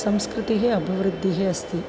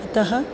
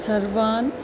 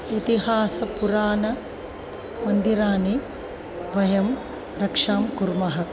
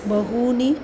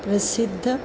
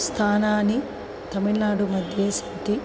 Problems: background sounds at intervals